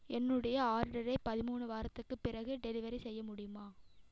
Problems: echo